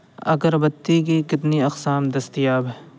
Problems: constant background noise